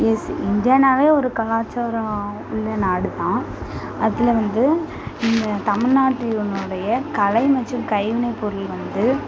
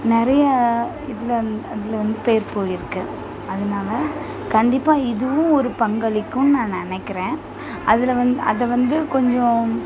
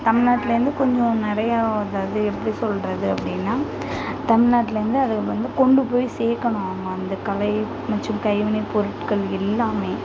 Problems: constant background noise, continuous background conversations